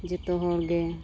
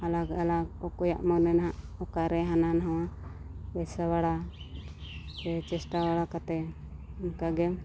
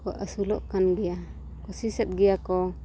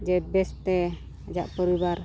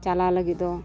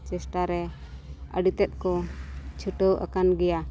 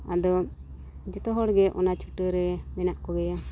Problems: background sounds at intervals, low volume